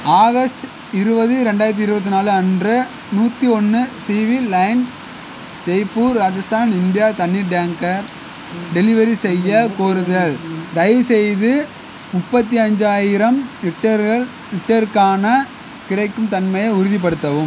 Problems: constant background noise